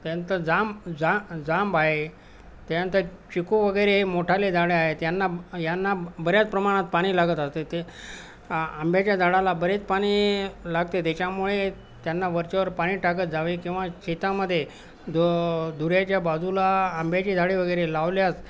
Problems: constant background noise